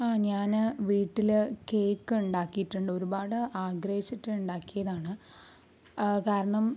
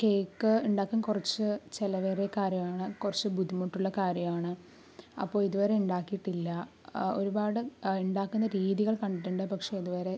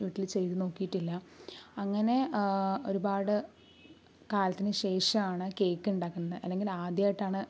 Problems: none marked